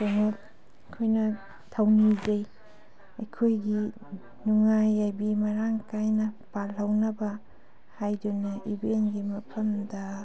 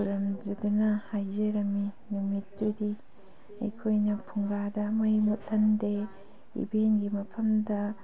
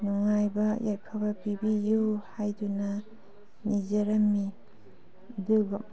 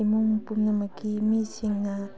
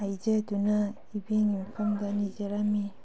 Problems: background sounds at intervals